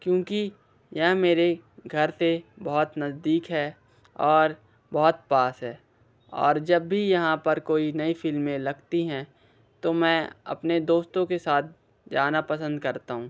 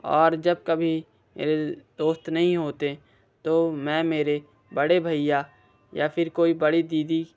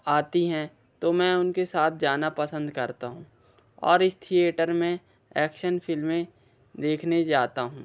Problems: constant background noise